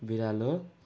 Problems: background sounds at intervals